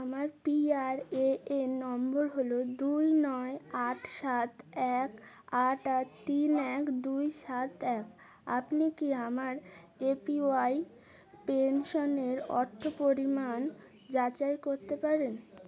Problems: background sounds at intervals, continuous background conversations